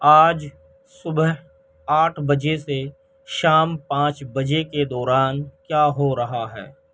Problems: none marked